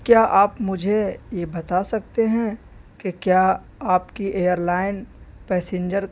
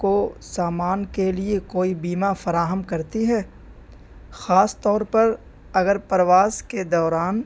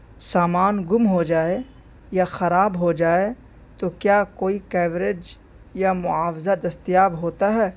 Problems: constant background noise